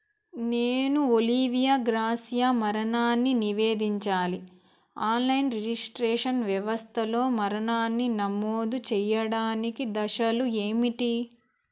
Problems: background sounds at intervals